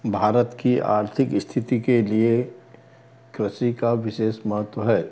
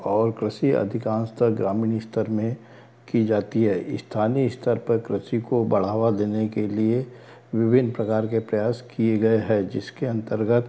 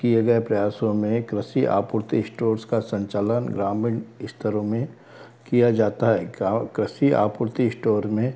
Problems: background sounds at intervals